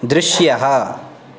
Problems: none marked